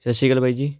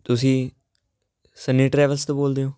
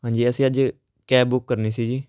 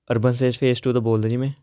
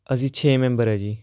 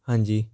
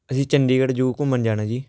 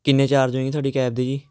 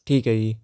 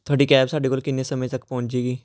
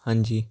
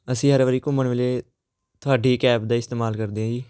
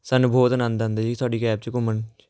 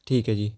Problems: none marked